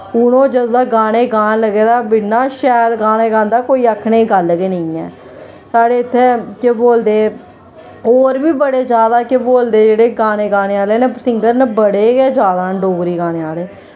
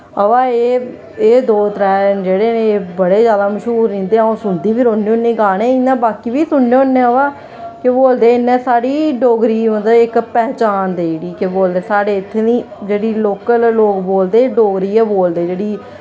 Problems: constant background noise